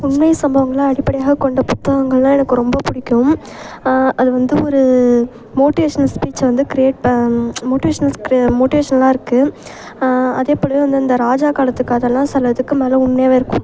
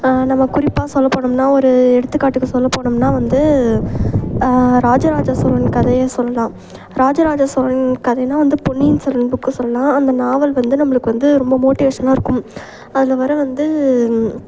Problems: constant background noise